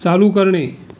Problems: background sounds at intervals